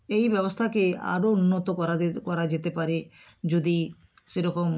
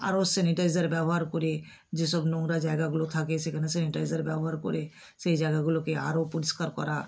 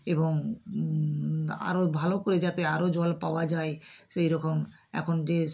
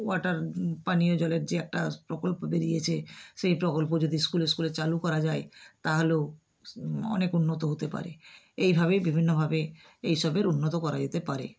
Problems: none marked